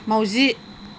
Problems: constant background noise